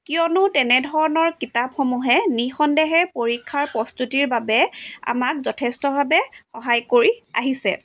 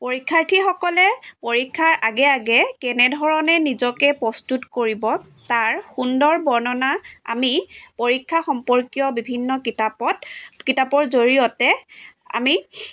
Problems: none marked